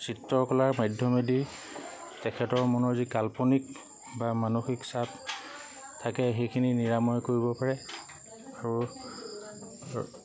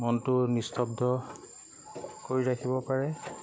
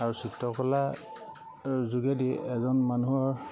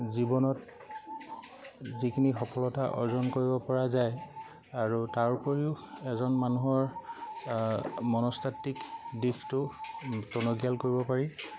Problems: constant background noise